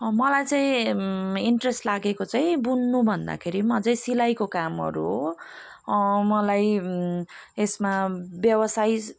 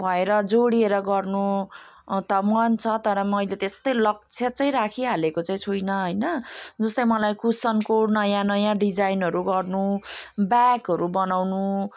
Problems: none marked